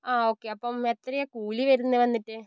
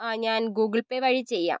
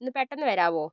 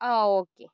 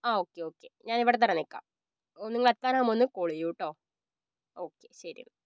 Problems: low volume